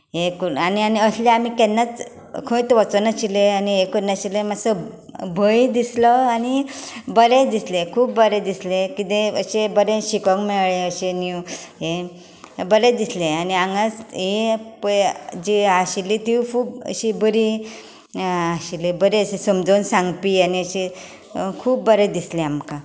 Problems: none marked